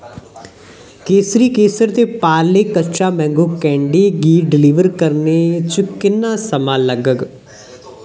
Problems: background sounds at intervals, echo